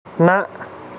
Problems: constant background noise